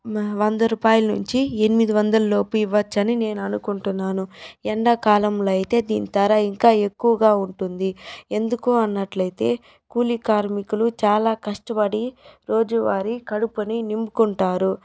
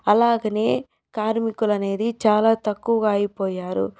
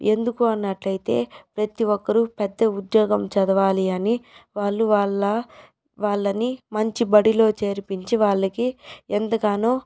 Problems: background sounds at intervals